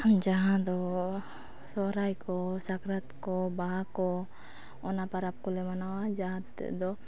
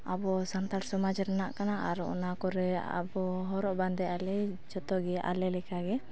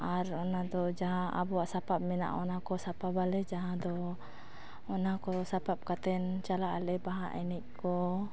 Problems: background conversations at intervals